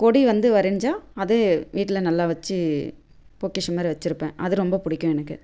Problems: constant background noise